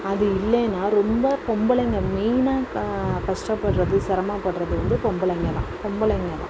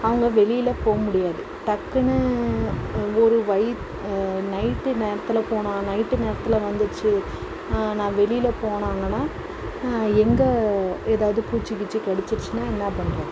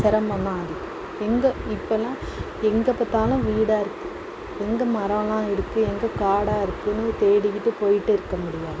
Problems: constant background noise